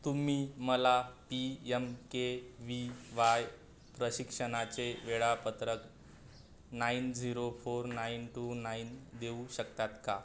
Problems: none marked